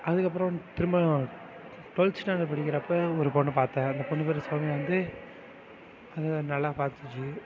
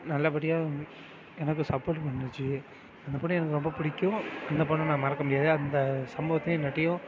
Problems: constant background noise, continuous background conversations